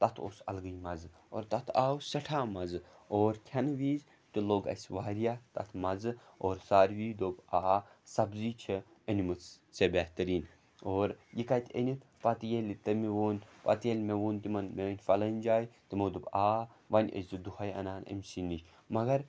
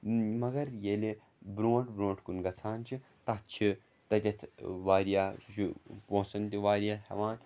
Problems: background sounds at intervals